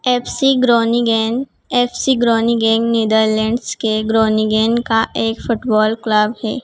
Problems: constant background noise